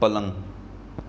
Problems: constant background noise